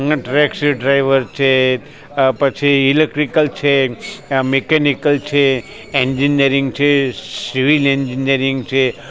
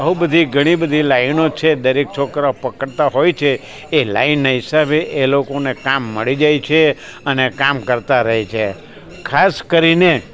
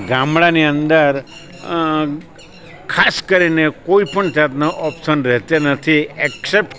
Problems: constant background noise, background conversations at intervals